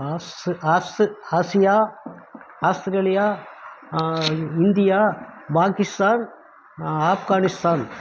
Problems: constant background noise